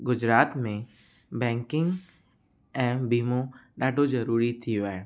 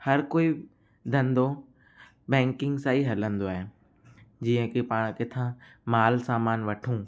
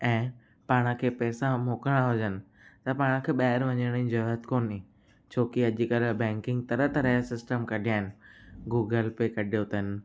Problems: constant background noise, echo